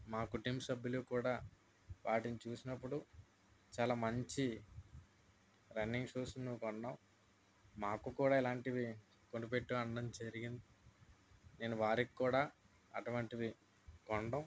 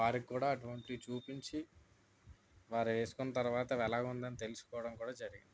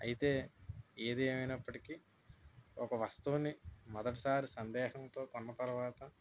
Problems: none marked